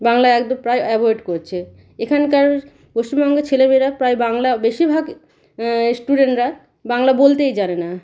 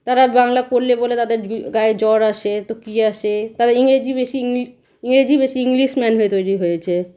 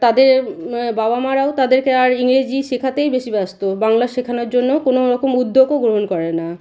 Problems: none marked